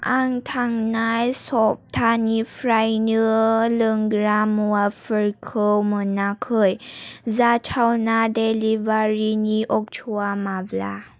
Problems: none marked